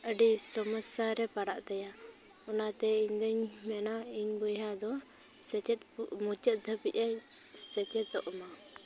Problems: background sounds at intervals, continuous background conversations